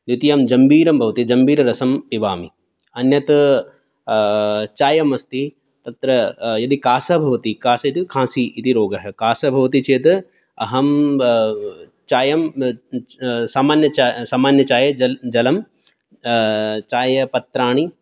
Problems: none marked